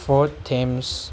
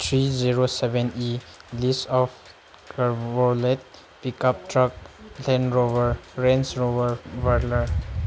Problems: constant background noise